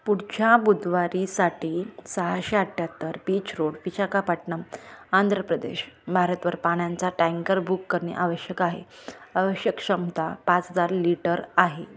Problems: none marked